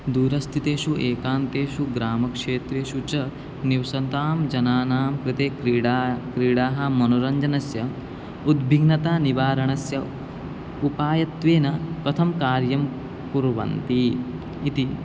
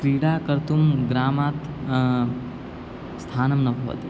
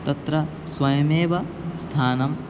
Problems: constant background noise